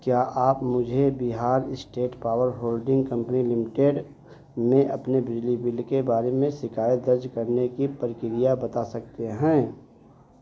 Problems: none marked